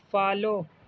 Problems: constant background noise, low volume